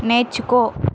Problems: constant background noise